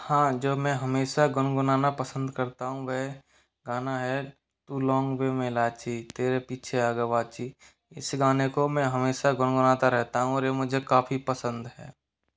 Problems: none marked